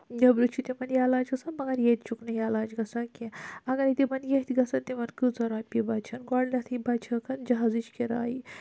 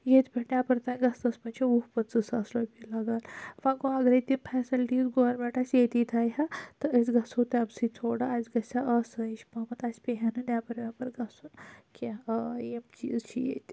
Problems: low volume